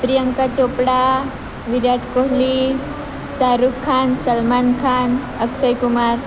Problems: constant background noise